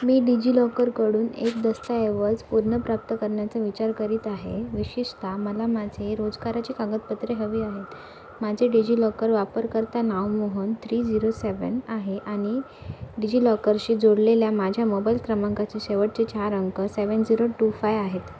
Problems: constant background noise, background conversations at intervals